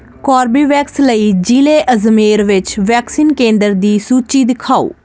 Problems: constant background noise